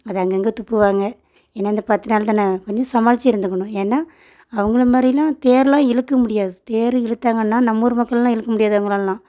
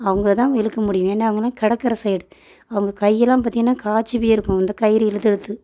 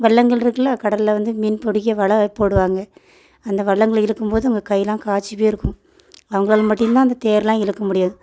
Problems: background sounds at intervals